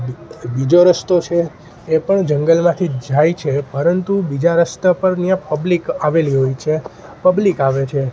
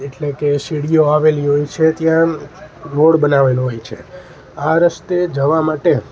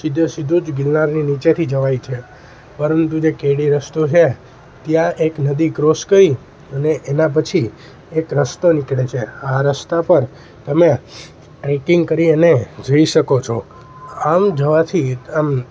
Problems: constant background noise